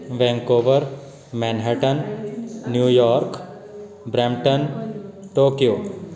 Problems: continuous background conversations